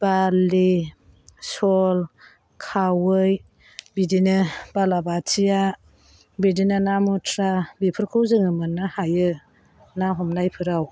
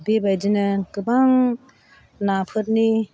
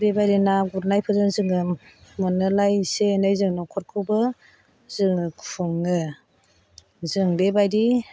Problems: constant background noise